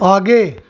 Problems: constant background noise